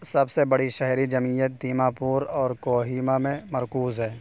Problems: constant background noise